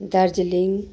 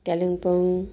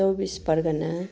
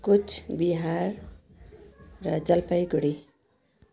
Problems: continuous background conversations